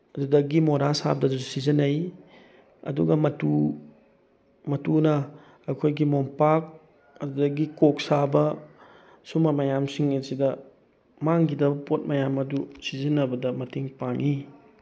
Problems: background sounds at intervals